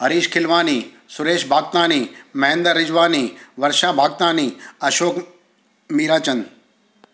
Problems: constant background noise, echo